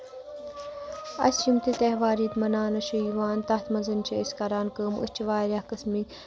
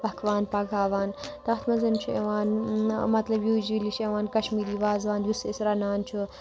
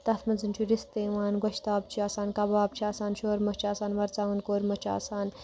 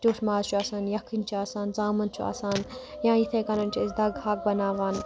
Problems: constant background noise